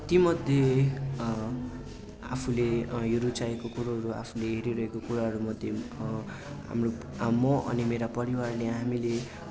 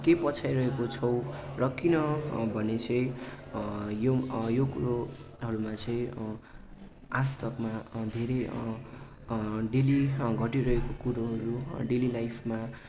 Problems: constant background noise